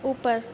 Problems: background sounds at intervals, low volume